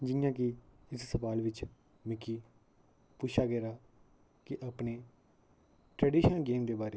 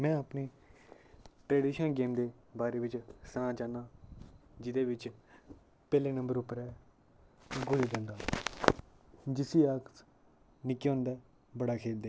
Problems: background sounds at intervals, low volume